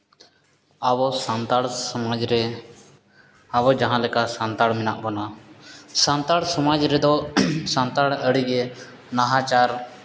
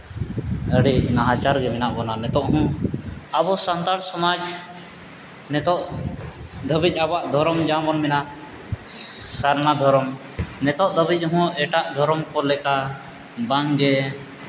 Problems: none marked